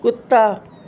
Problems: constant background noise